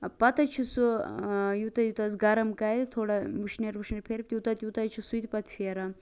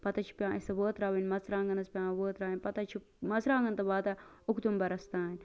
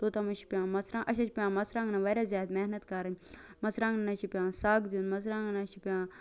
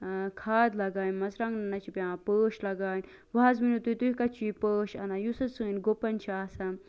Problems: constant background noise